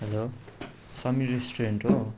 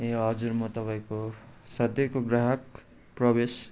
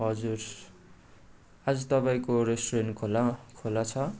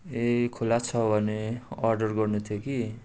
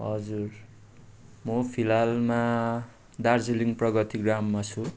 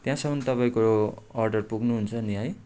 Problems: background sounds at intervals